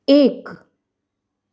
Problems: none marked